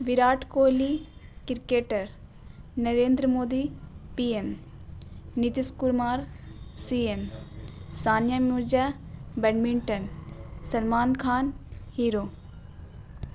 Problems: constant background noise